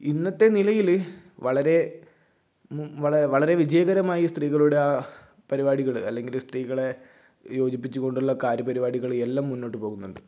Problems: none marked